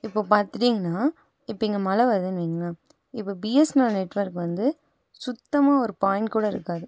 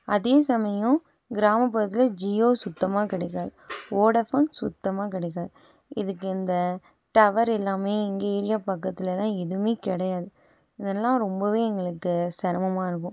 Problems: none marked